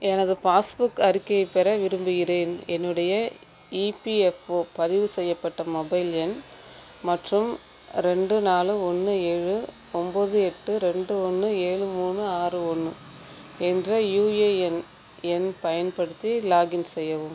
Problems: constant background noise